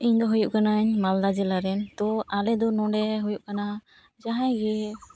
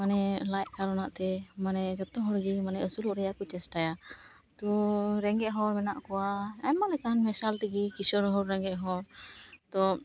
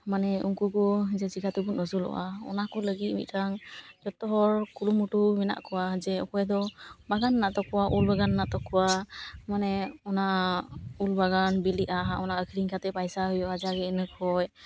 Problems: background sounds at intervals